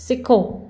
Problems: none marked